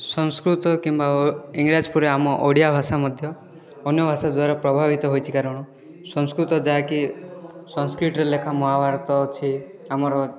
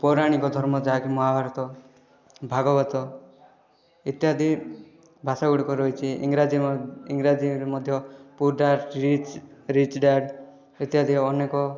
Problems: continuous background conversations